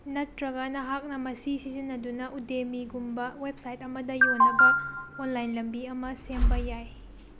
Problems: background sounds at intervals, low volume